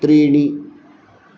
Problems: none marked